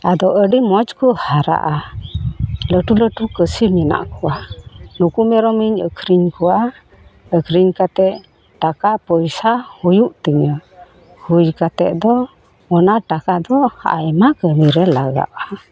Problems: background sounds at intervals